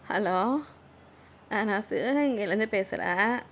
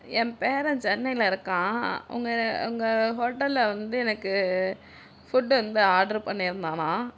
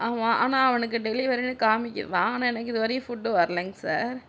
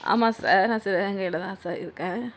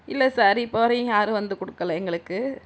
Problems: none marked